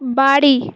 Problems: constant background noise